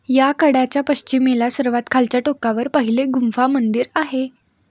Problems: none marked